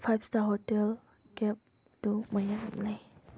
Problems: background sounds at intervals